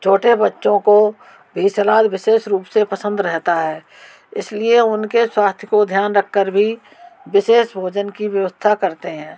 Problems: background sounds at intervals